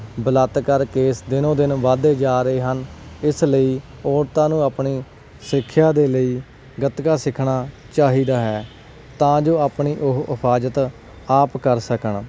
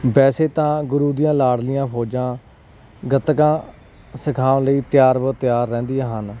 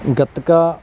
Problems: background sounds at intervals